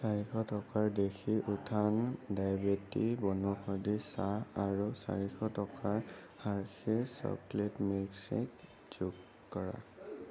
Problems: constant background noise